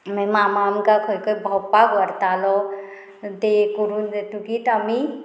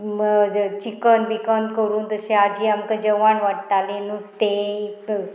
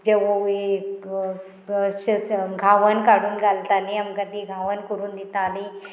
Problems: constant background noise